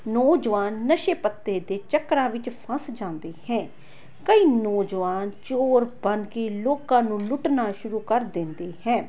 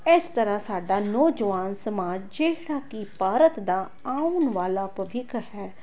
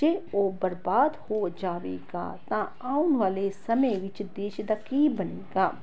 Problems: background conversations at intervals